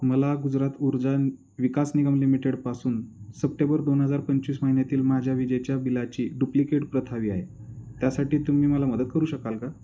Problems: none marked